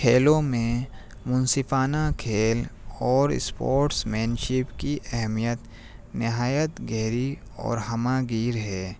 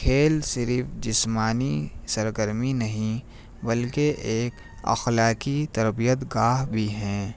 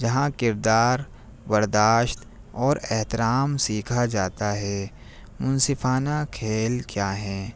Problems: none marked